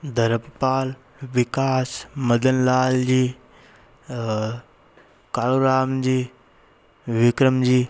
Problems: constant background noise